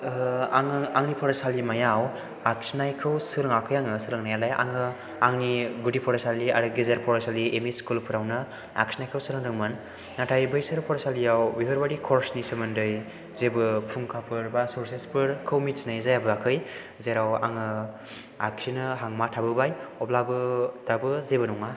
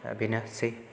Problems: background sounds at intervals